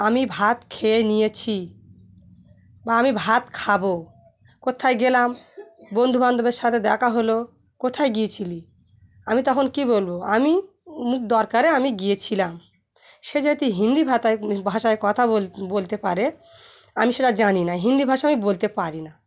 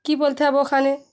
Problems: none marked